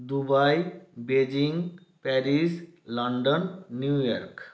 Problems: none marked